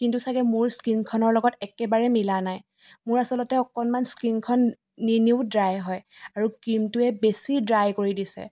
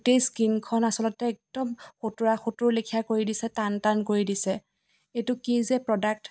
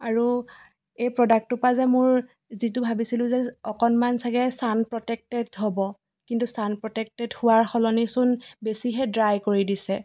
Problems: background sounds at intervals